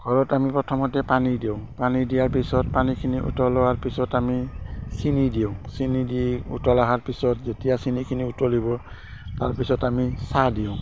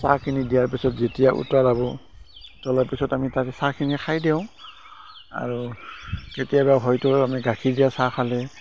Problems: constant background noise